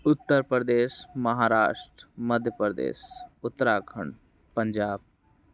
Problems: background sounds at intervals